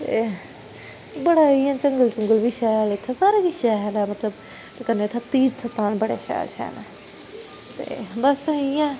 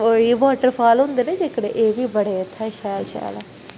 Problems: constant background noise